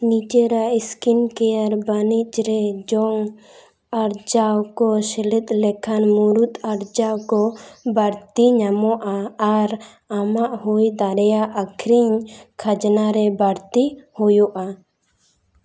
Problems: echo